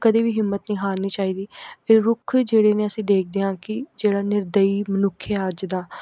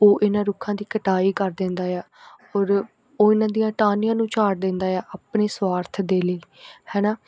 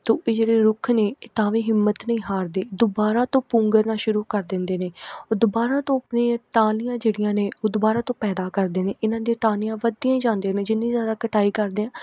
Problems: none marked